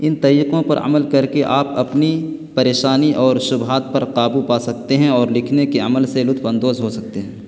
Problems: constant background noise